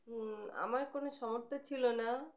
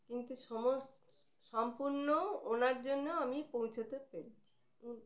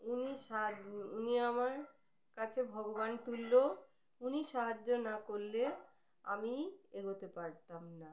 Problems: background sounds at intervals